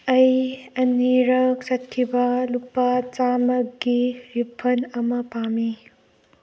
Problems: none marked